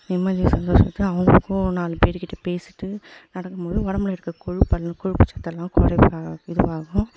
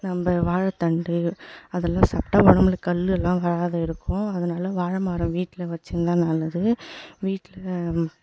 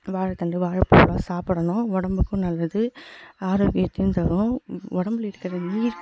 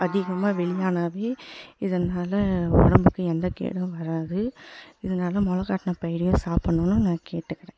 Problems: background sounds at intervals, echo